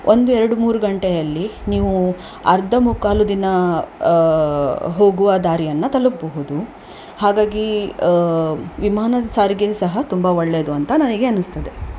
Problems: none marked